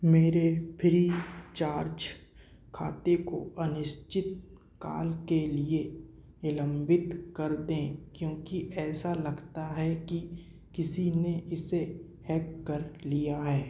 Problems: none marked